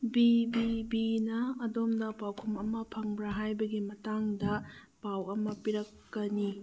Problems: background sounds at intervals